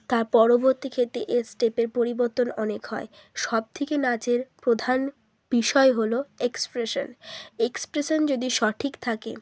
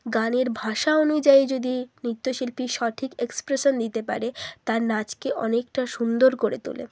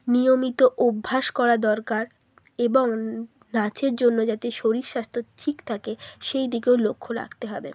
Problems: none marked